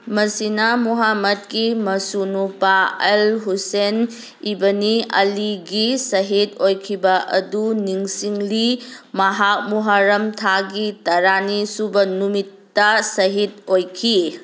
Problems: background sounds at intervals